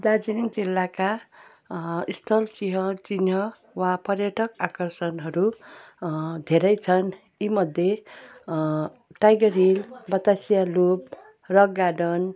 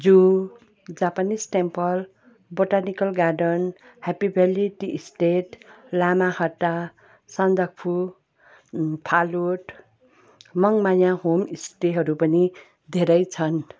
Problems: background sounds at intervals